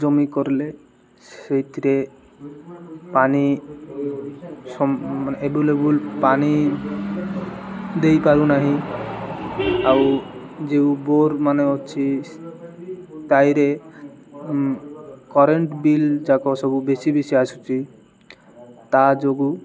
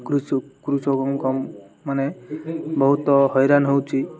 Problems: none marked